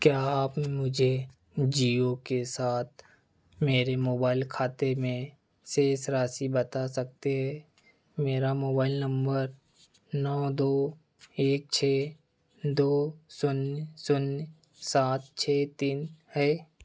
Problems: background sounds at intervals